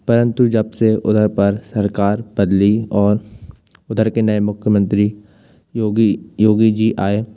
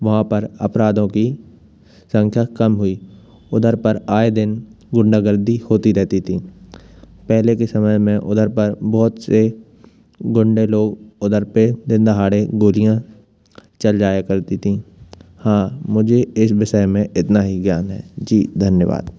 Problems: constant background noise